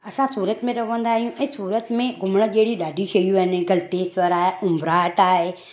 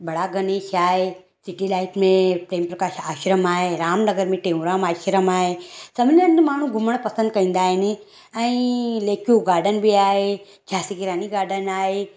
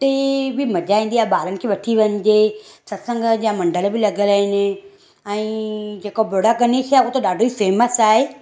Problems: none marked